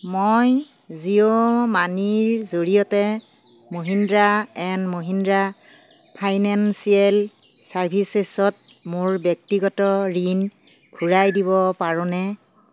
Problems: none marked